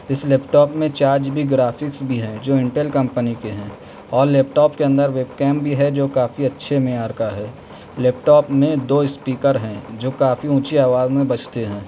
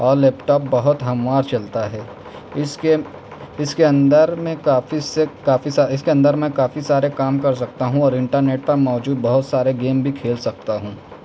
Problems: none marked